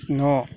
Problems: constant background noise